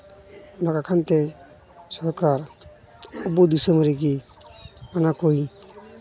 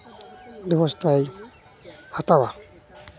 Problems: none marked